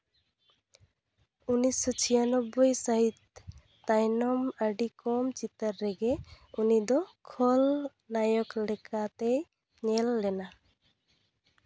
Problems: background sounds at intervals